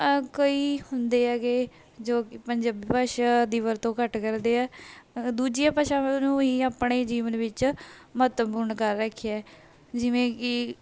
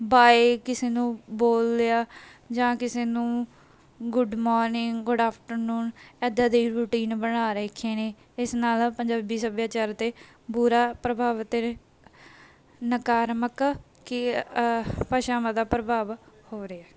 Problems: background sounds at intervals